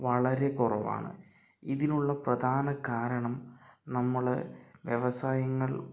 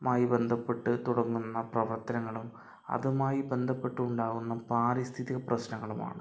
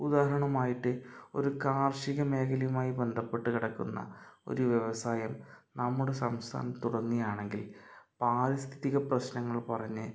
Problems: none marked